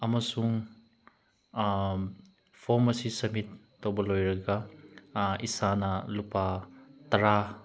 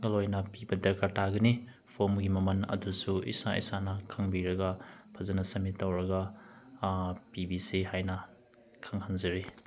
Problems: none marked